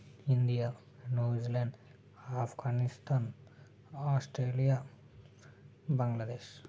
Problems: constant background noise, low volume